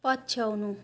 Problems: none marked